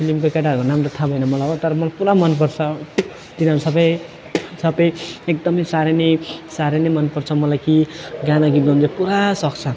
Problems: continuous background conversations